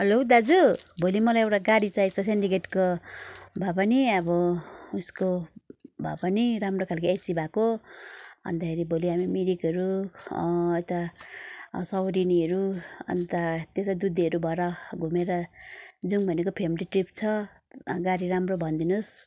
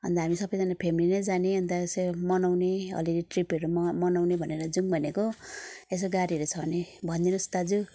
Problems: background sounds at intervals